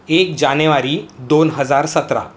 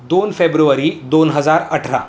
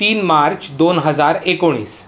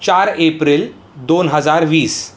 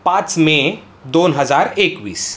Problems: constant background noise, background conversations at intervals